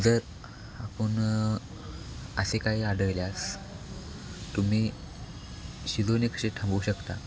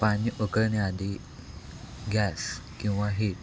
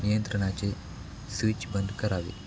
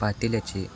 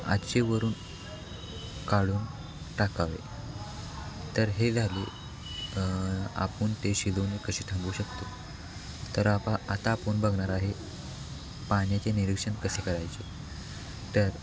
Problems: constant background noise, background conversations at intervals